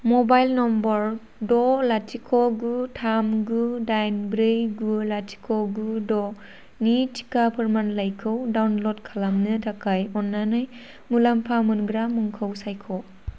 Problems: constant background noise